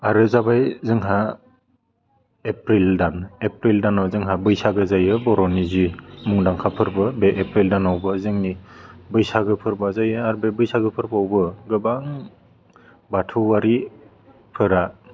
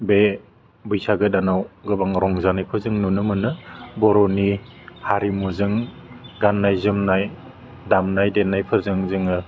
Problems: constant background noise